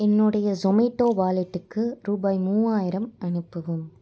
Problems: none marked